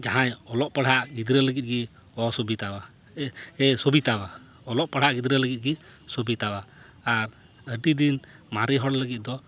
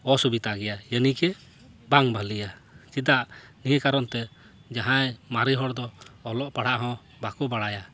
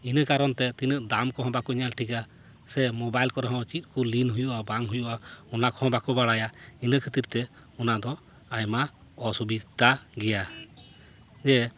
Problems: none marked